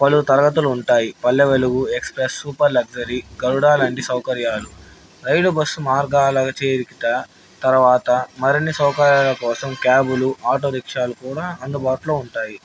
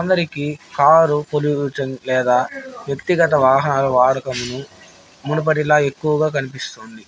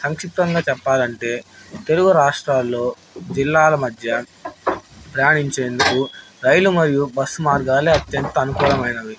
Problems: background sounds at intervals, background conversations at intervals